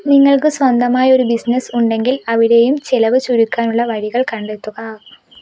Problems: none marked